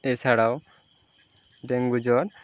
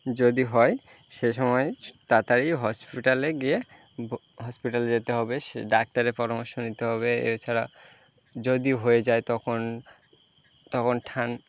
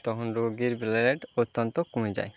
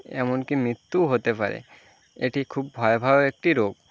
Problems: constant background noise